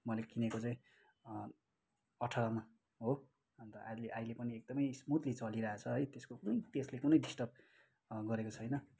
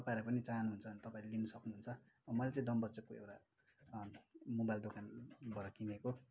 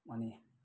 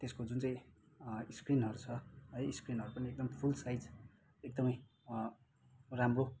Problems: background sounds at intervals